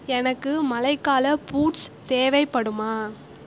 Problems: none marked